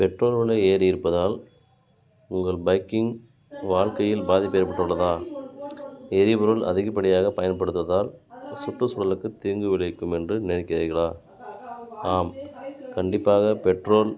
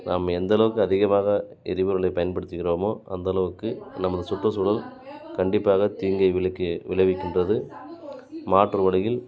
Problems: continuous background conversations